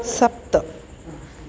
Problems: constant background noise